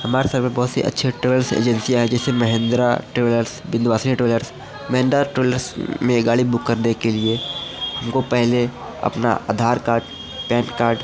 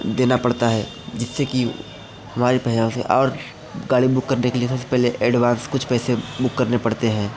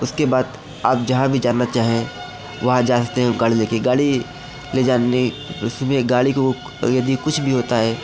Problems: background conversations at intervals